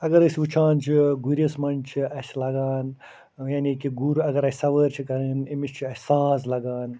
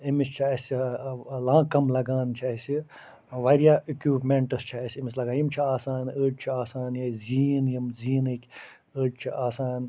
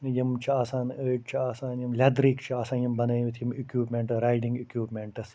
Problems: none marked